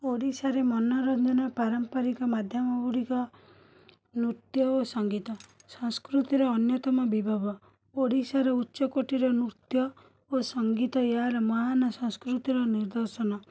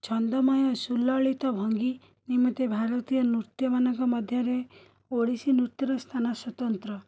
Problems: continuous background conversations